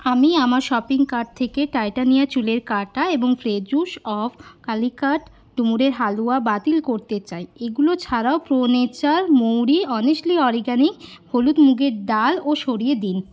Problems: constant background noise